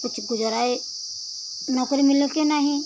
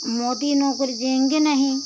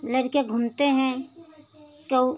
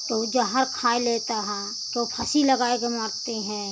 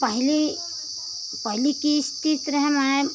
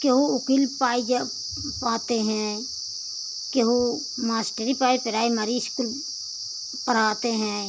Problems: constant background noise